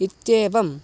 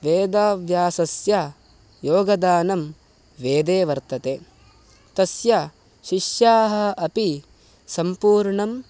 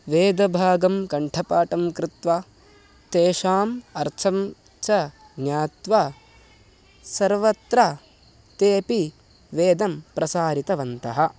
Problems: constant background noise